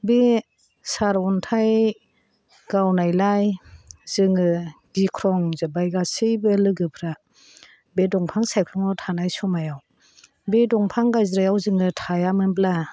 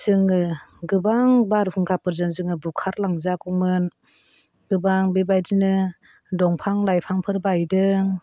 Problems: constant background noise